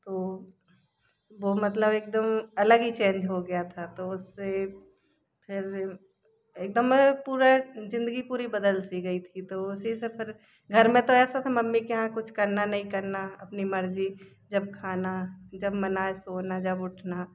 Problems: constant background noise